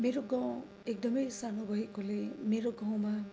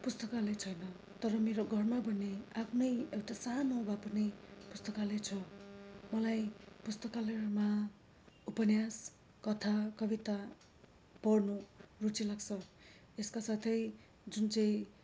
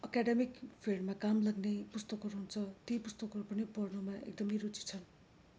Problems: none marked